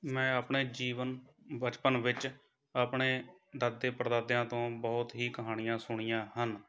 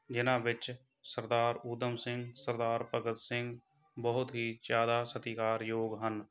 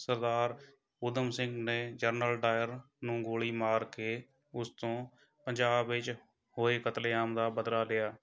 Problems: background conversations at intervals